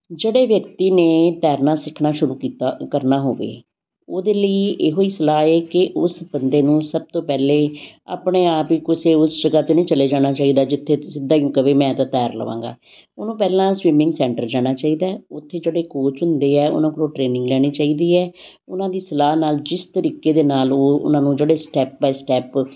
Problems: constant background noise